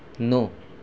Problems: none marked